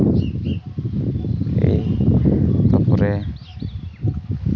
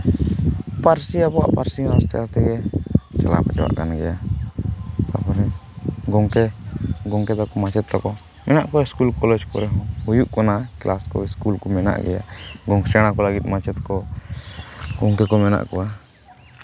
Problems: none marked